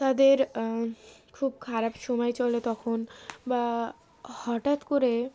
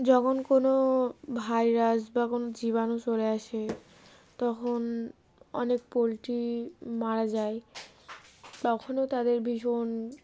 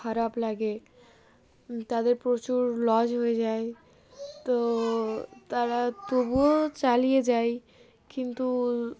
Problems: background sounds at intervals